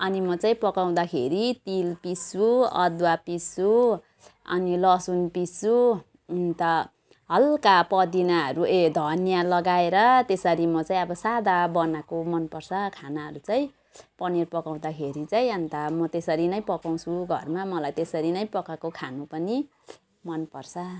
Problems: background sounds at intervals